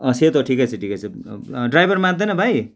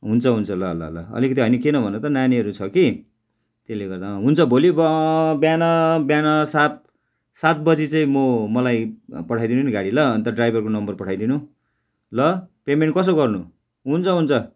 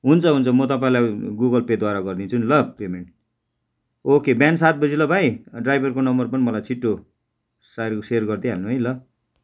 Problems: none marked